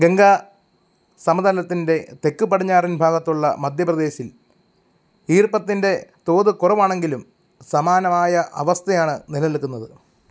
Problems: none marked